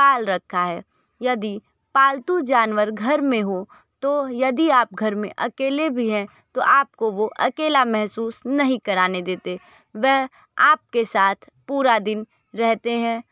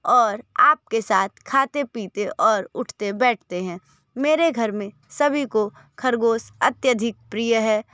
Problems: none marked